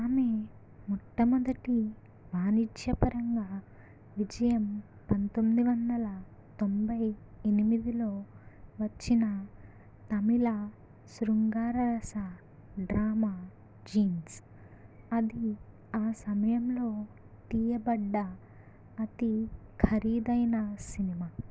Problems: low volume